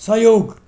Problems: background sounds at intervals